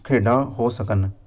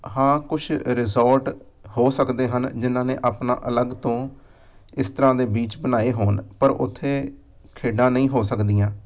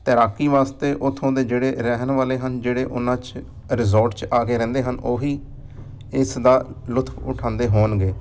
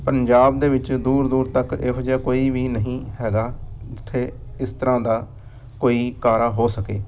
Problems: background sounds at intervals